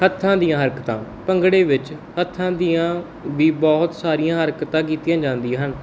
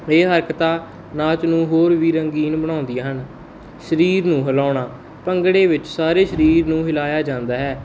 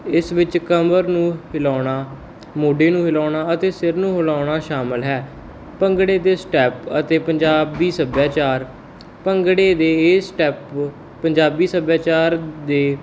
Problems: none marked